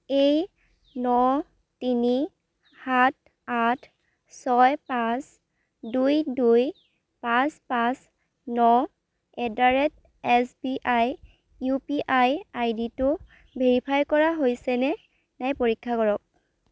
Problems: background sounds at intervals